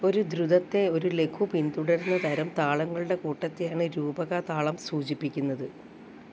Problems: background sounds at intervals